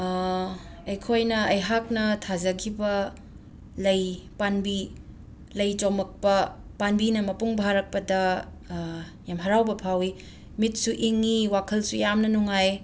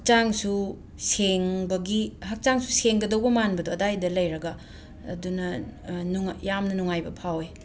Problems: background sounds at intervals